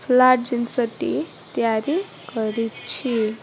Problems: constant background noise, continuous background conversations